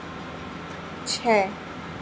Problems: constant background noise